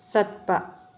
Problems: low volume